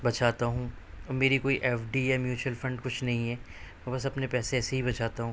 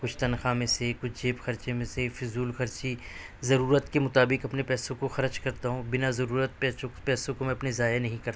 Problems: none marked